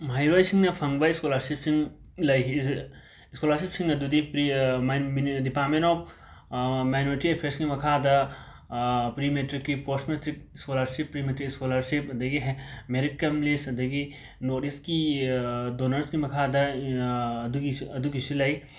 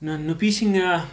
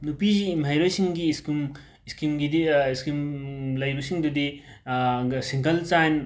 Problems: background sounds at intervals